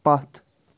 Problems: none marked